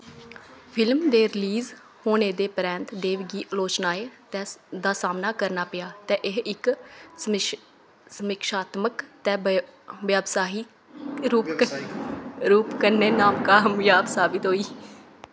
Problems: constant background noise, background conversations at intervals